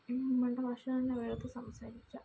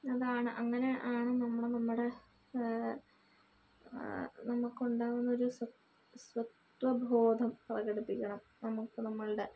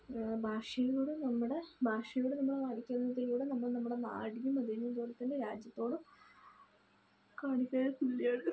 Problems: low volume